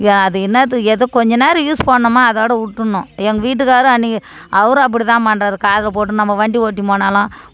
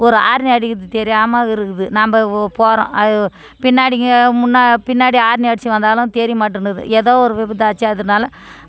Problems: background conversations at intervals